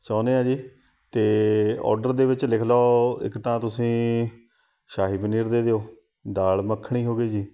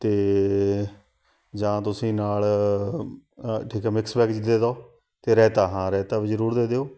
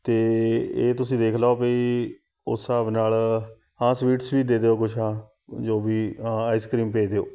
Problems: background sounds at intervals